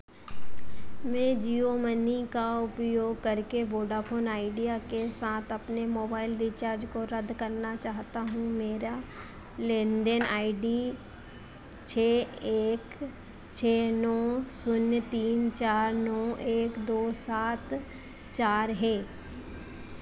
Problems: constant background noise